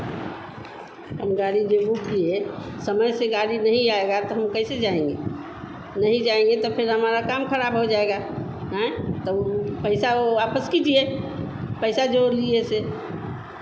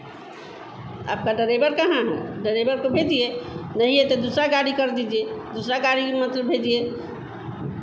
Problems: constant background noise